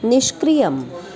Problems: constant background noise